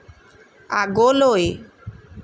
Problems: none marked